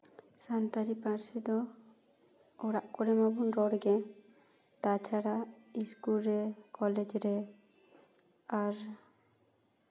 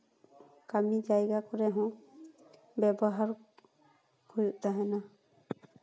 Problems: none marked